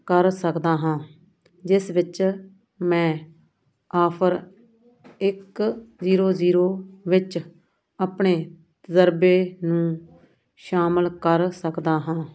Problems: none marked